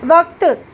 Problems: constant background noise